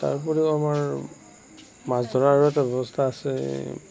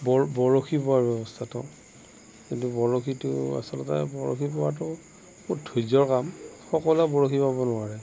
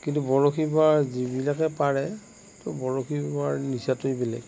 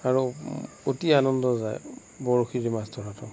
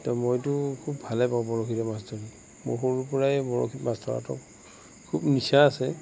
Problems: background sounds at intervals, background conversations at intervals, low volume